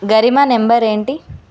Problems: none marked